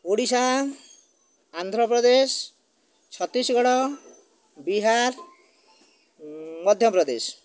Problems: none marked